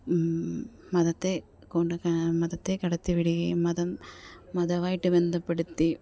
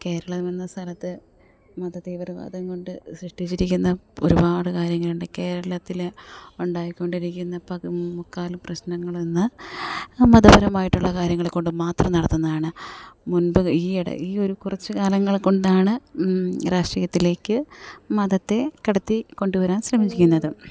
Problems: none marked